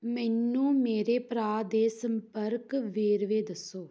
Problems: none marked